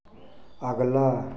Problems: background sounds at intervals